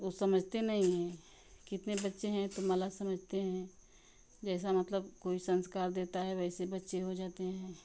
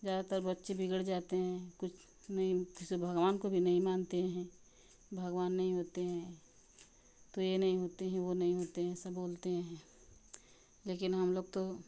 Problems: none marked